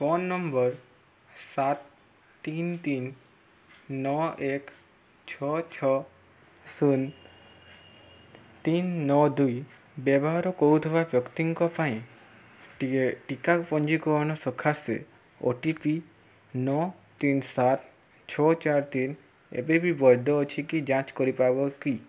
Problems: background sounds at intervals